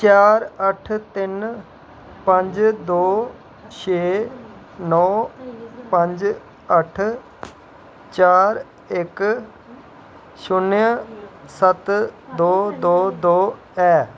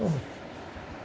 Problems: constant background noise